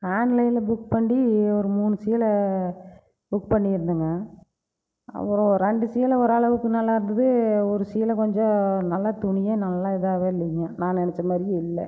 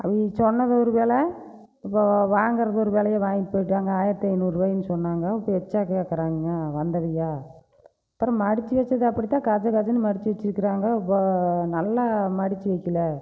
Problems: none marked